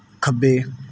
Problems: background sounds at intervals